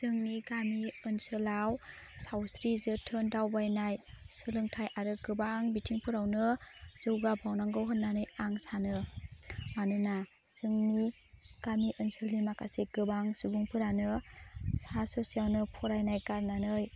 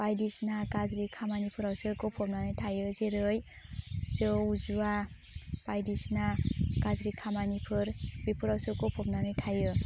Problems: constant background noise